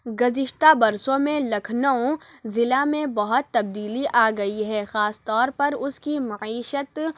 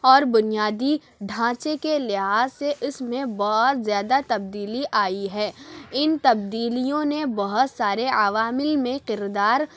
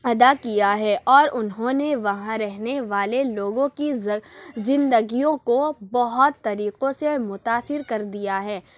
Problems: none marked